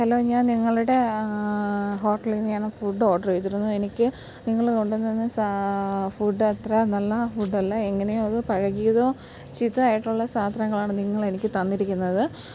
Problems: none marked